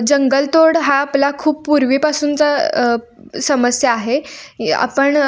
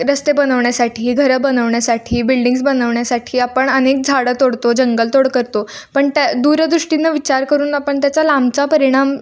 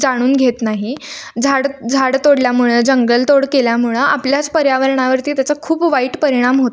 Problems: none marked